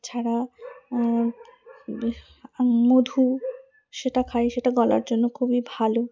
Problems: background sounds at intervals